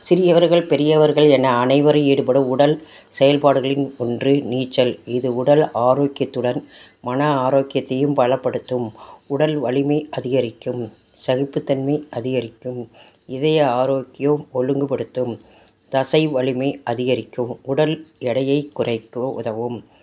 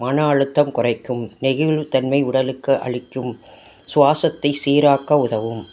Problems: none marked